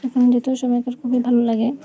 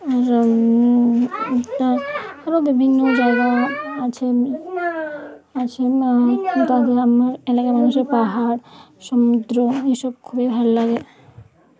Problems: continuous background conversations